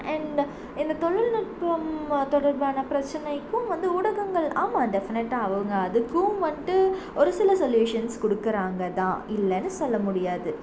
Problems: constant background noise